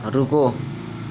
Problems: constant background noise